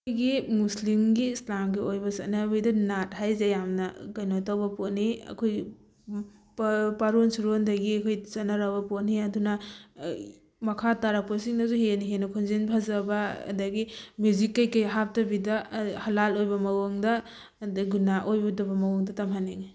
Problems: none marked